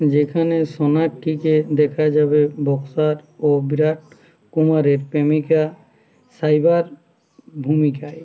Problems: none marked